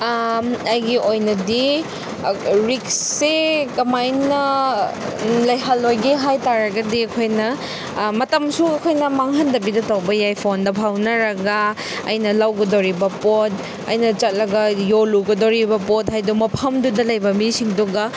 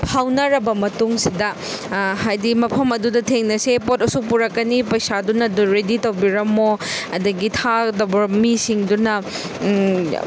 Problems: background sounds at intervals